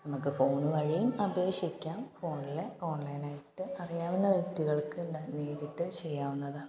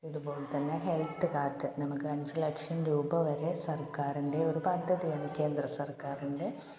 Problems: background sounds at intervals, low volume